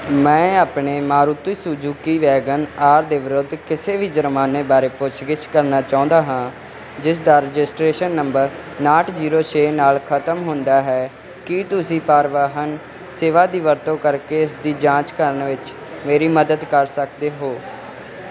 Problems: none marked